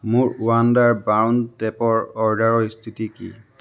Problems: background sounds at intervals